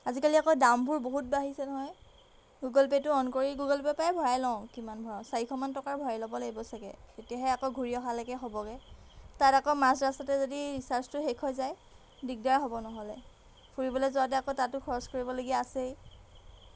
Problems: background sounds at intervals